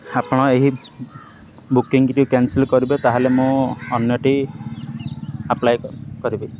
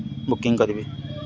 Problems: constant background noise